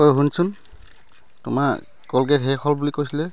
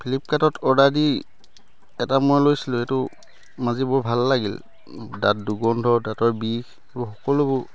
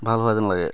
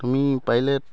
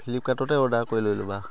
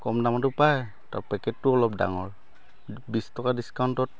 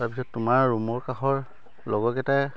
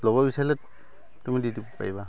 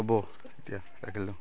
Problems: constant background noise, background conversations at intervals